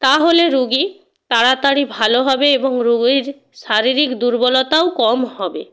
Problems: constant background noise